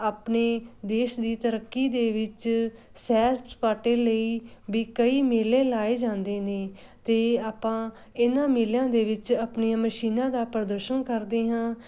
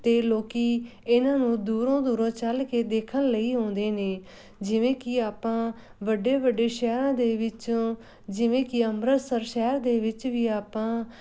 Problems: background sounds at intervals